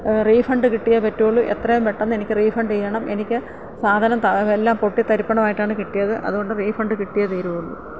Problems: low volume